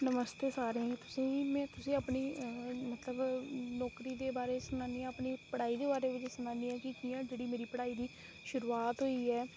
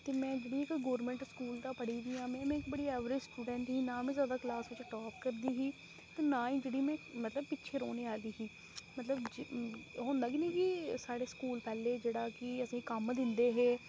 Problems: constant background noise, low volume